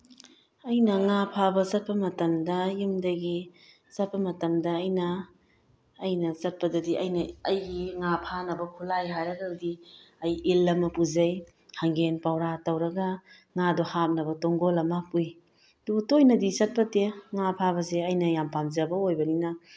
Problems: none marked